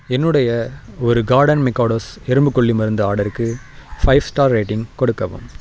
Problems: constant background noise